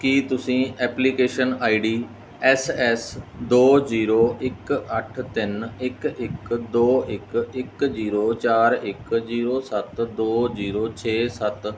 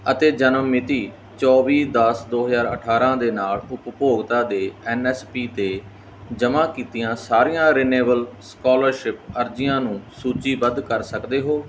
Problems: background sounds at intervals